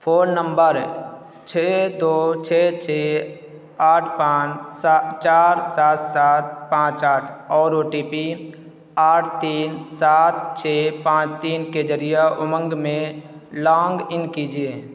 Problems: constant background noise